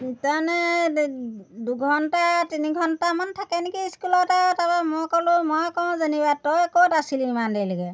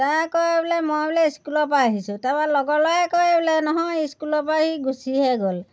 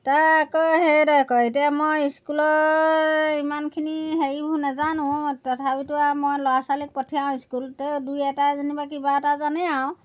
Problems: none marked